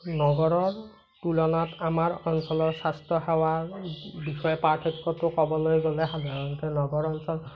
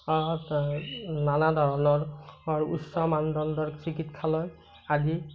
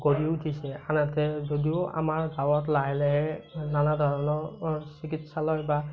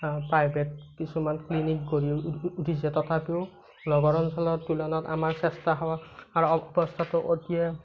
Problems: none marked